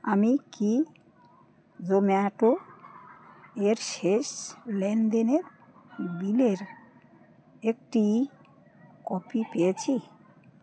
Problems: constant background noise